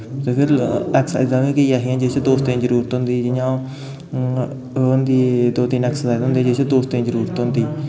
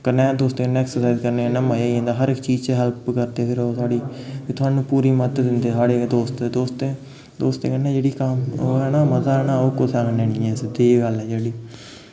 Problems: constant background noise, background conversations at intervals